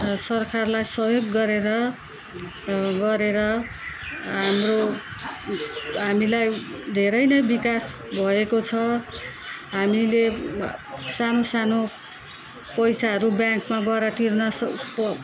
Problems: none marked